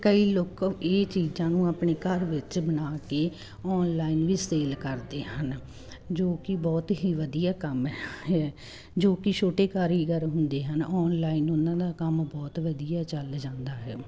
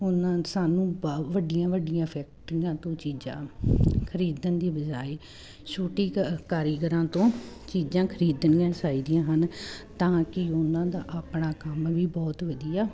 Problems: none marked